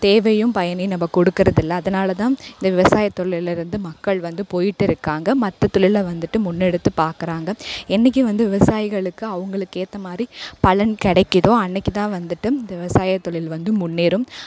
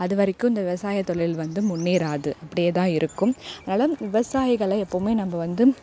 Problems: none marked